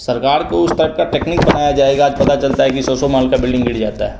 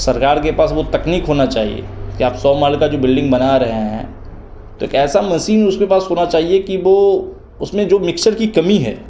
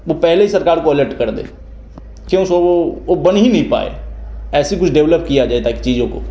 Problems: none marked